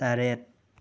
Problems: none marked